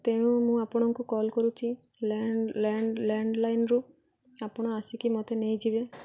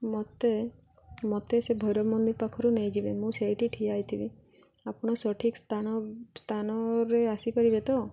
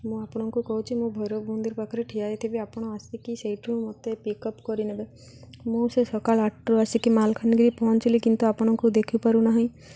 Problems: none marked